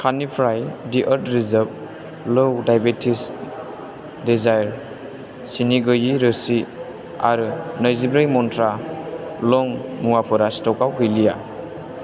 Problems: constant background noise